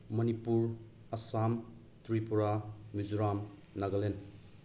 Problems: background sounds at intervals